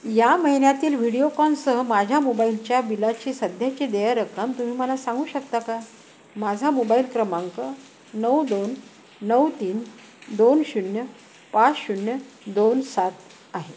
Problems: constant background noise